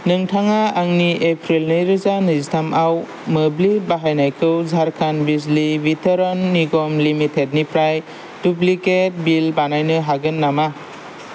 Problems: none marked